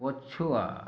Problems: none marked